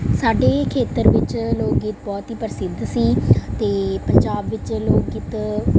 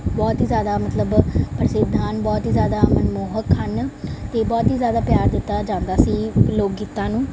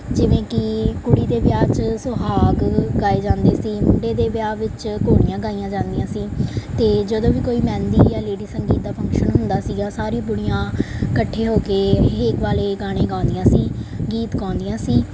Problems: background sounds at intervals